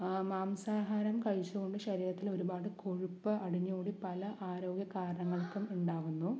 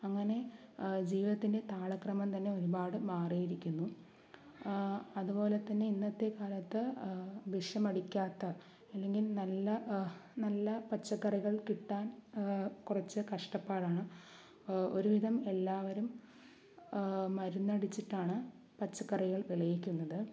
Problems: low volume